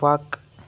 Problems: none marked